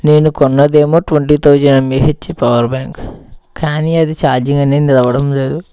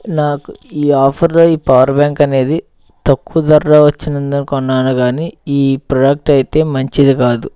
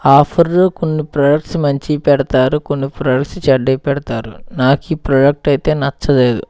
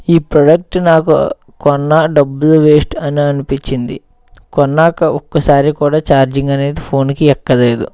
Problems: background sounds at intervals